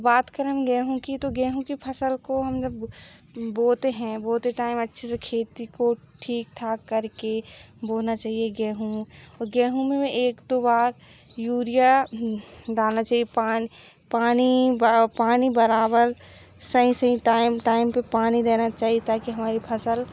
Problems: background sounds at intervals